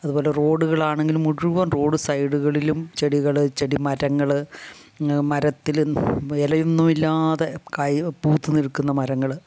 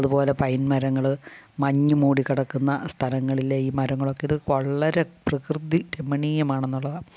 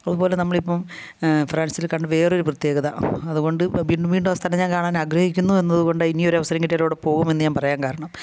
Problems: low volume